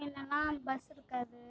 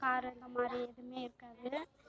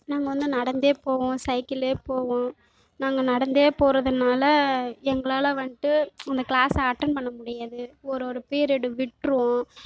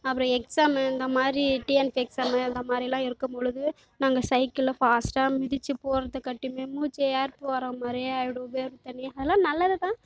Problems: background sounds at intervals